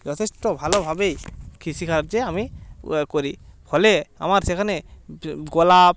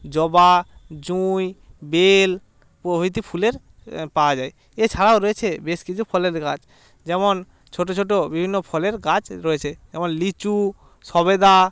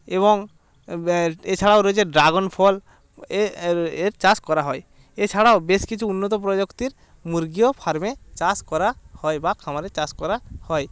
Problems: background sounds at intervals